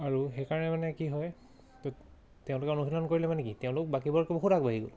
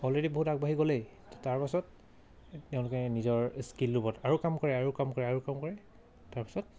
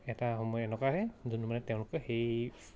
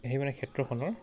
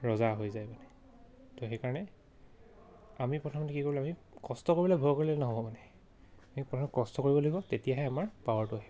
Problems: none marked